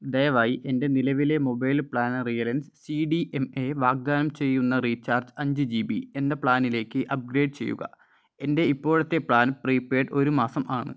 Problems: none marked